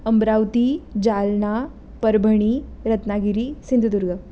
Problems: constant background noise